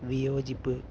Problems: none marked